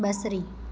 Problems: constant background noise, echo